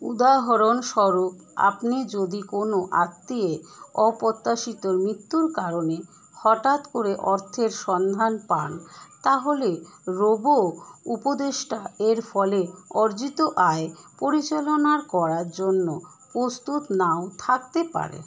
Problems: none marked